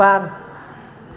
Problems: constant background noise